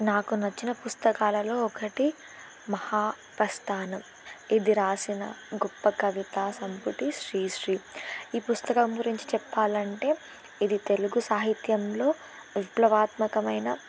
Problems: constant background noise